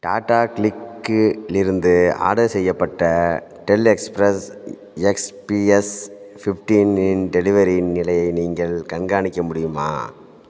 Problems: background sounds at intervals